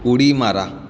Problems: constant background noise, background conversations at intervals